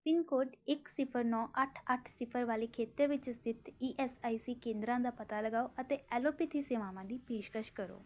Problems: background sounds at intervals